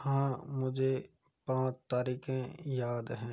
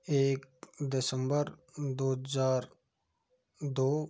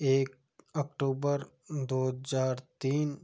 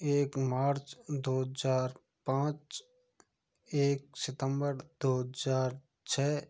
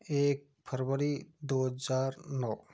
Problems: low volume